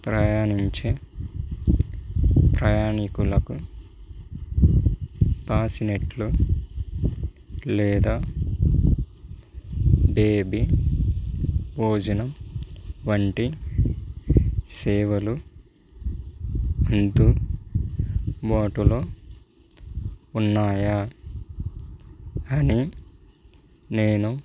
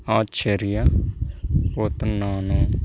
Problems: background sounds at intervals